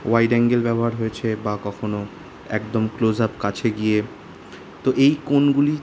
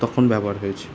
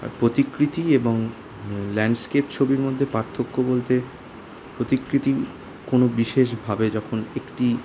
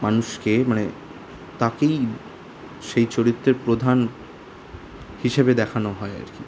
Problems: constant background noise